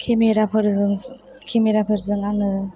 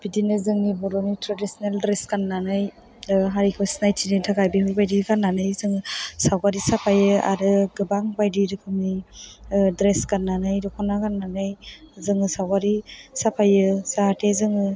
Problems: background conversations at intervals